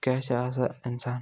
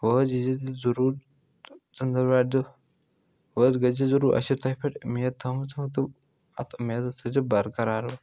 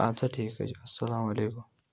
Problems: none marked